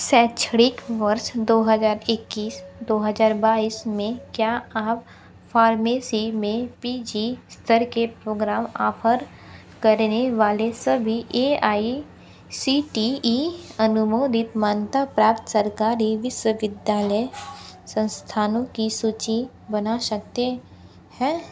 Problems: constant background noise